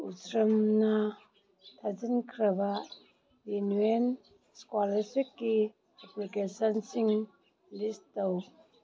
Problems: background conversations at intervals